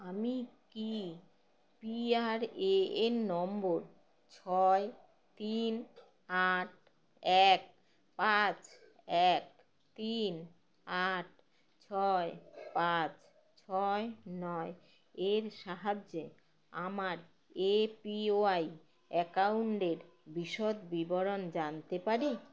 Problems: none marked